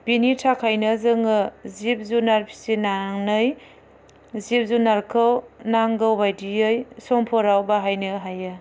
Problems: none marked